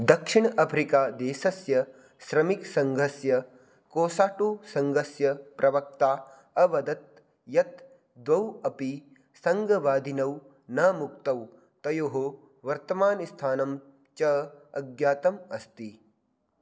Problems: none marked